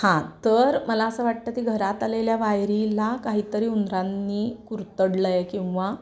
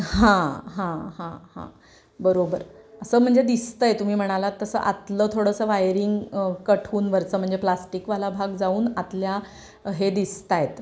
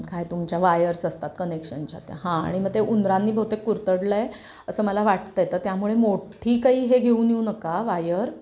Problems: background sounds at intervals